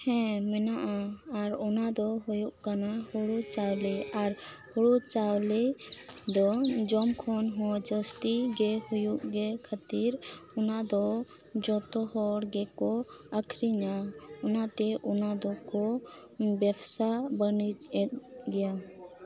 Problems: none marked